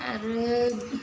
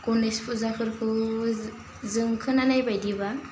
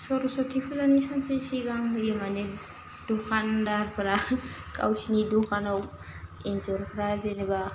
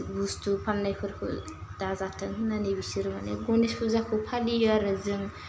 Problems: constant background noise